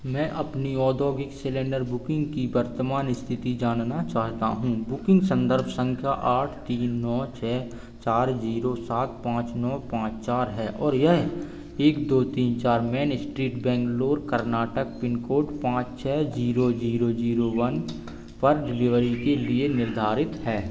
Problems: none marked